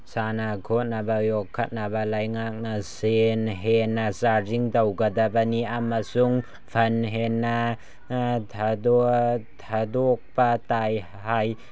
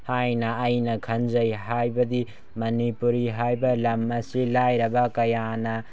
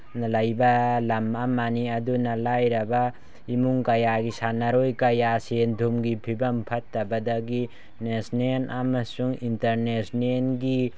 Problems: none marked